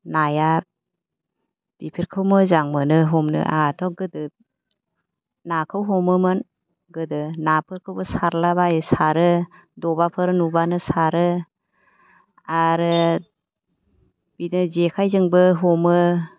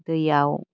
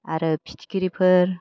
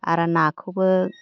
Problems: low volume